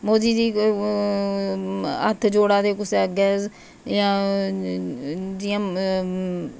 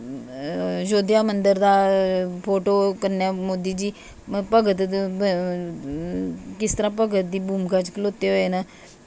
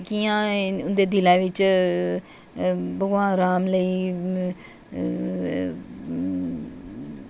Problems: none marked